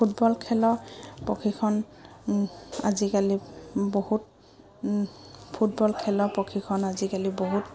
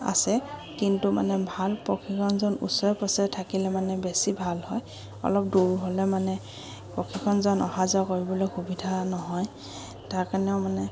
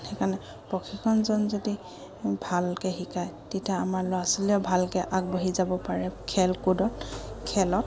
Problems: background sounds at intervals